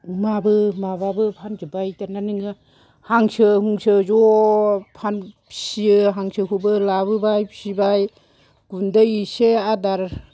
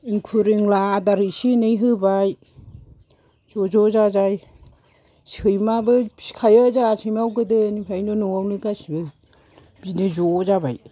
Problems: low volume